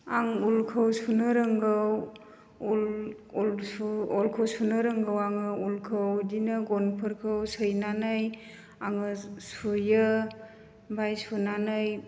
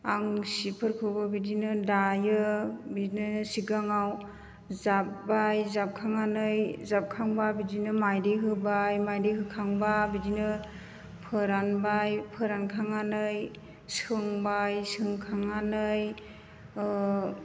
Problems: constant background noise